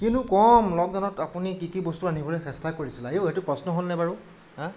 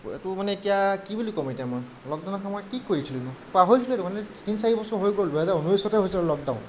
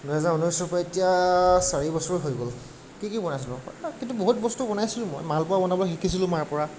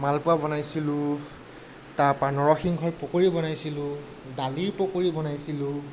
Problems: none marked